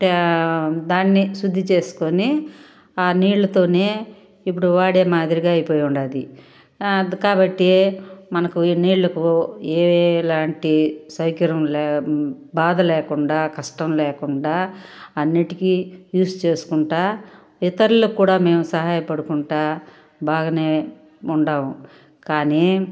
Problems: background sounds at intervals